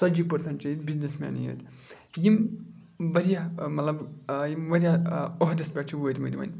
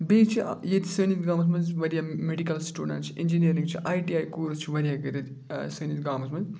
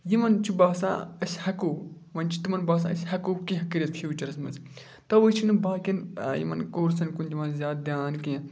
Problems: none marked